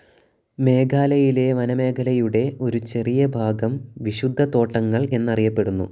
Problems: low volume